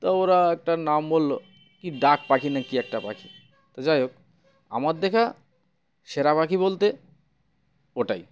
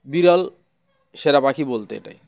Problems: constant background noise